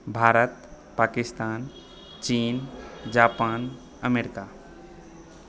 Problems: background sounds at intervals